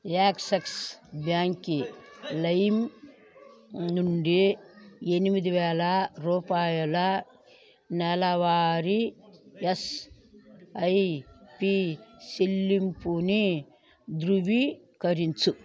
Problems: background conversations at intervals